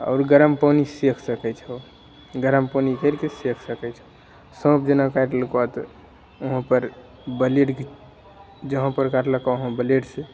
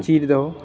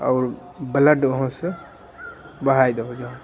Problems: none marked